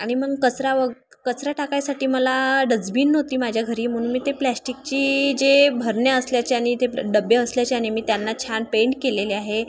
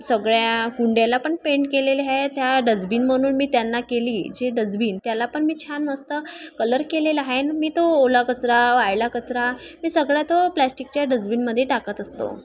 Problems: constant background noise, background conversations at intervals